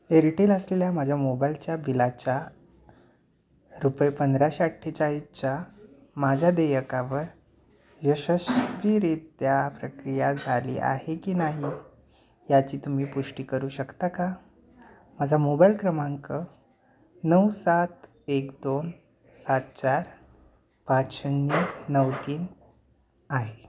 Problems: background sounds at intervals, background conversations at intervals